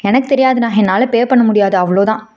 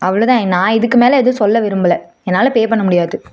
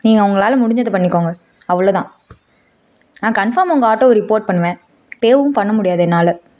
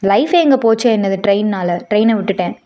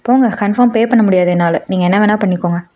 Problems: none marked